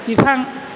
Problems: constant background noise